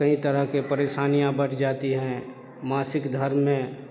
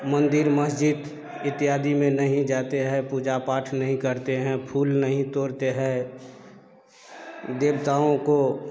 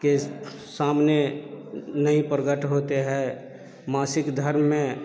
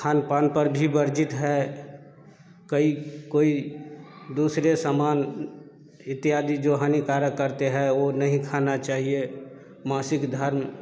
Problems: low volume